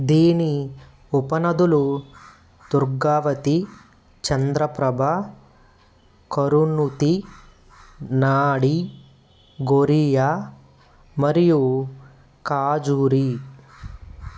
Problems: constant background noise